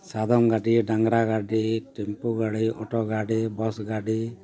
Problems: continuous background conversations